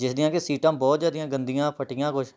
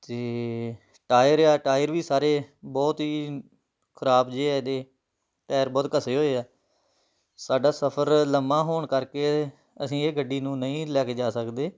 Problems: none marked